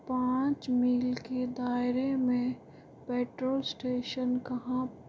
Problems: none marked